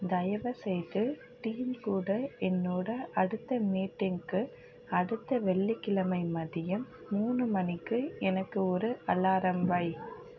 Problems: none marked